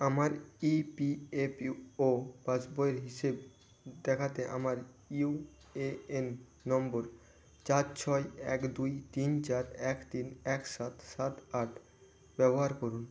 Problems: constant background noise